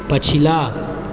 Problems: background sounds at intervals